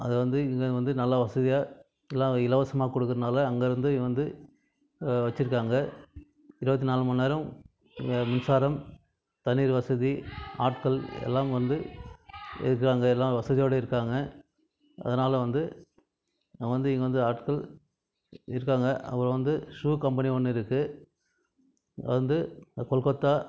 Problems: background conversations at intervals